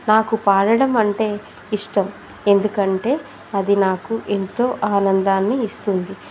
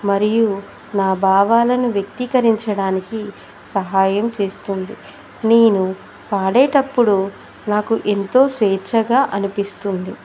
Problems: constant background noise